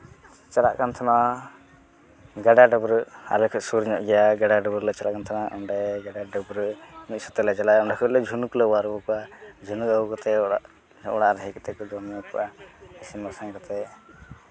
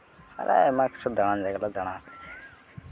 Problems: continuous background conversations